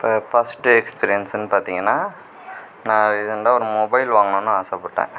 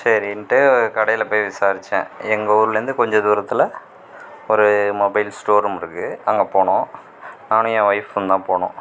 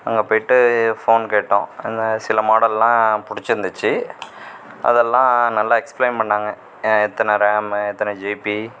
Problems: constant background noise